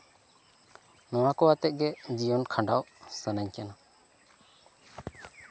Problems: constant background noise, continuous background conversations